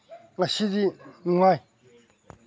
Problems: background sounds at intervals